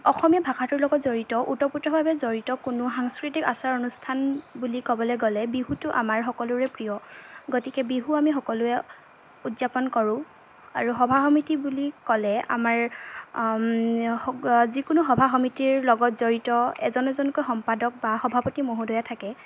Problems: constant background noise, background conversations at intervals